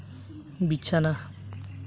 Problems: constant background noise